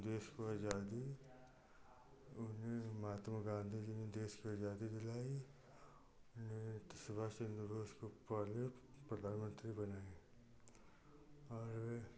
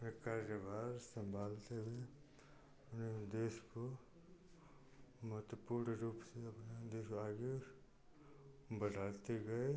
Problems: constant background noise